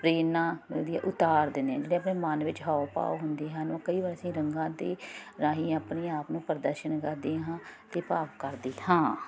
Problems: none marked